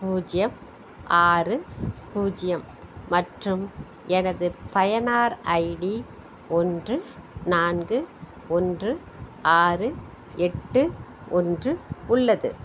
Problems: background sounds at intervals